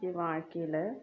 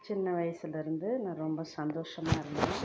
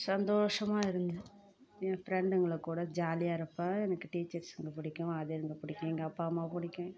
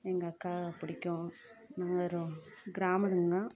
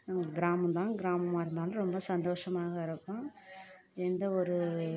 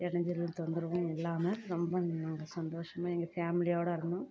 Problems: low volume